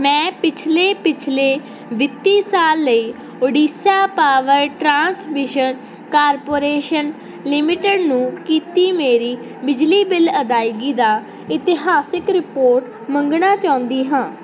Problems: none marked